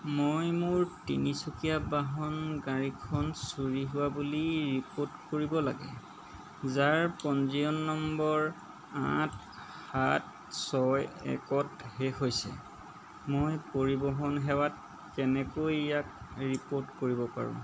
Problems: none marked